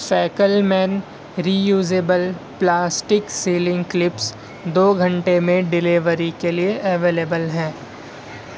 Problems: constant background noise